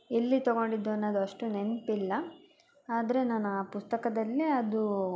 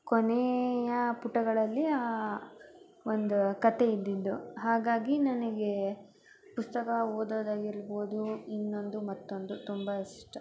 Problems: none marked